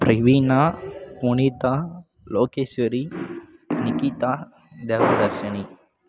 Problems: background sounds at intervals